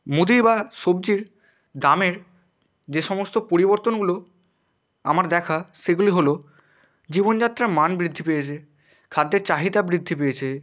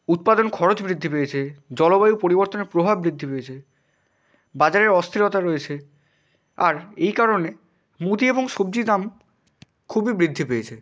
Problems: constant background noise